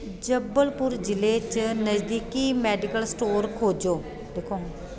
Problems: constant background noise